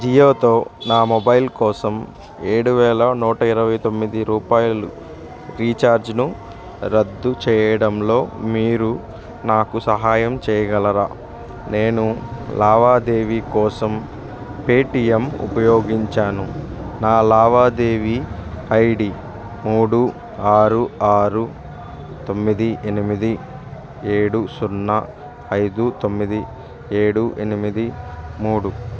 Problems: none marked